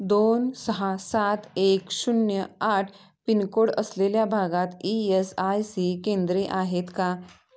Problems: background sounds at intervals, background conversations at intervals